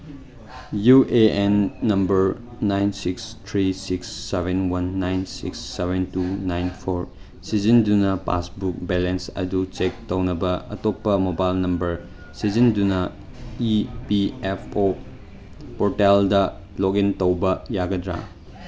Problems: background sounds at intervals